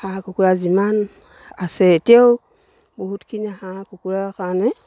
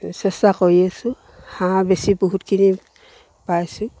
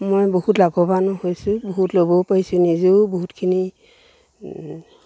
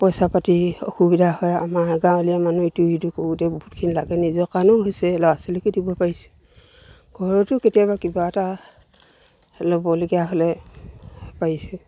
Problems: none marked